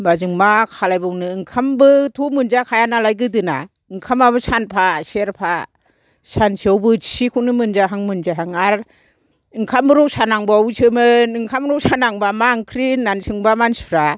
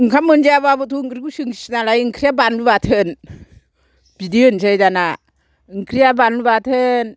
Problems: low volume